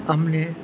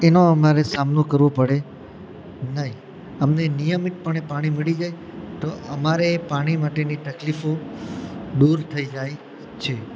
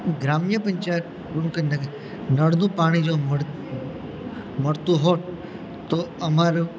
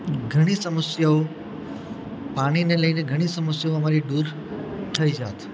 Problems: constant background noise